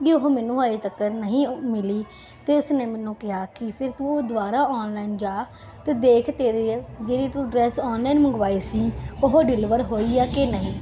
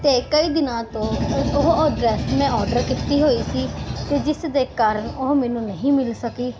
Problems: background sounds at intervals